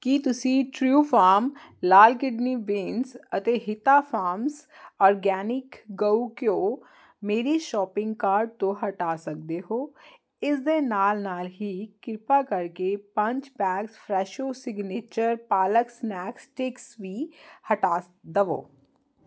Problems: constant background noise